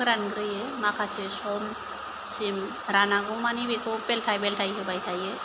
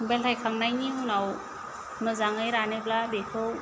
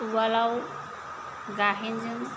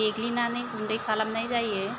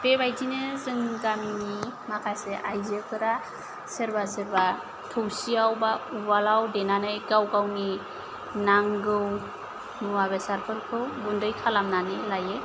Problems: none marked